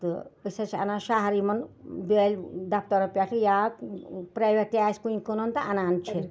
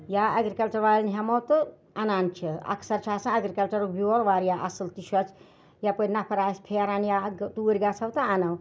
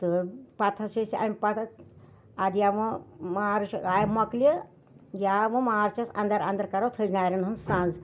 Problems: none marked